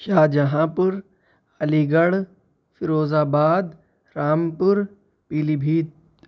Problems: none marked